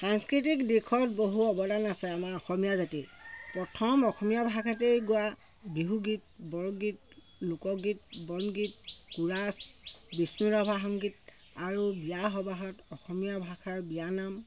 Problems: constant background noise